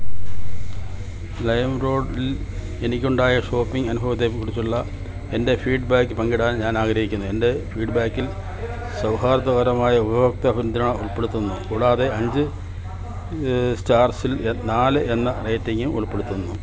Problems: constant background noise